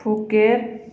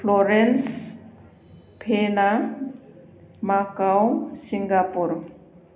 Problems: none marked